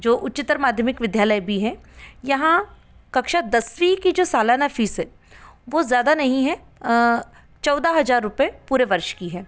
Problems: background sounds at intervals